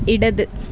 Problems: constant background noise